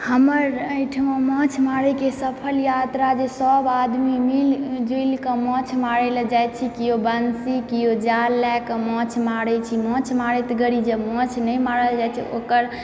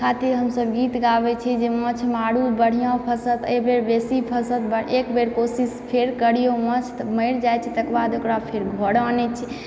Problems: background sounds at intervals, background conversations at intervals